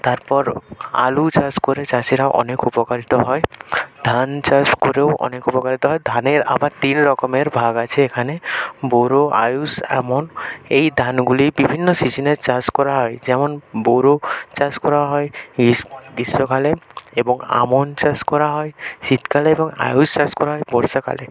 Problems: none marked